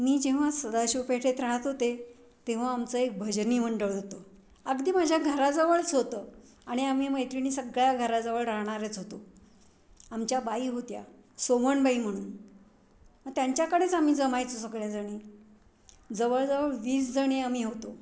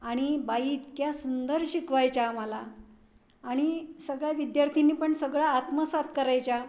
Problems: none marked